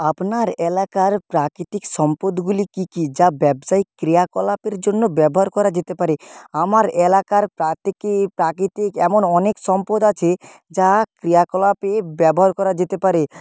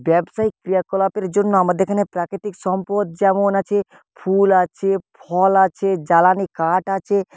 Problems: background sounds at intervals